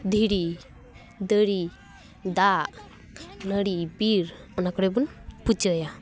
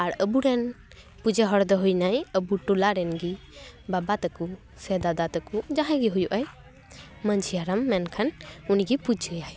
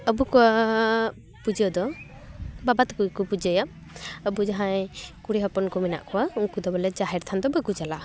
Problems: none marked